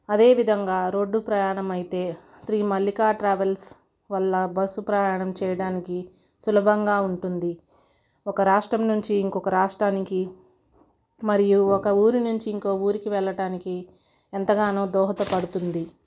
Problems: none marked